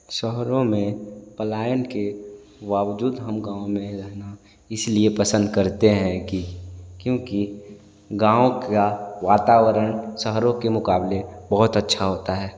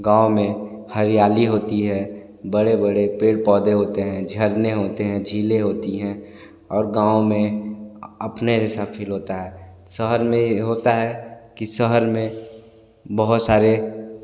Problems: constant background noise, echo